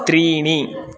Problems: background sounds at intervals